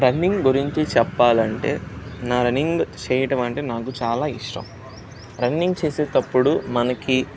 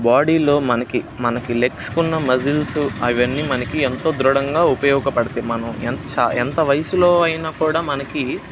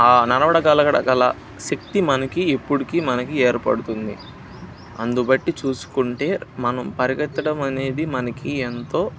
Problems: none marked